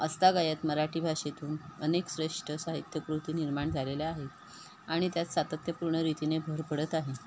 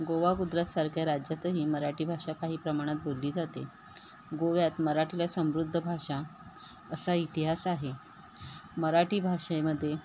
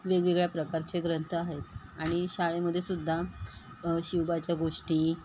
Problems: constant background noise